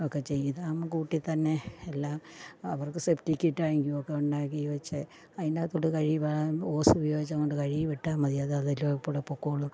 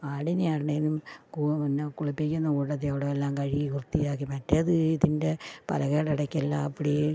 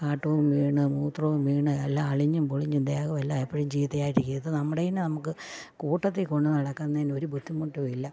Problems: low volume